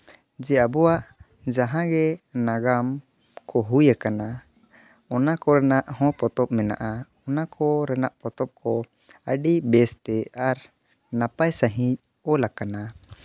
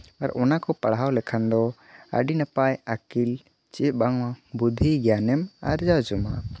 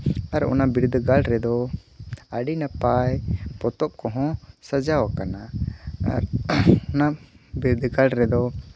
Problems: none marked